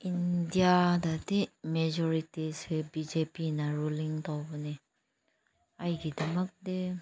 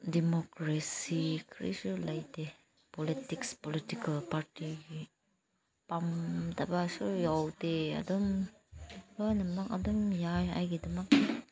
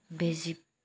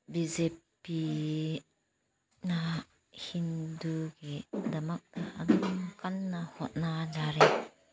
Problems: background conversations at intervals, low volume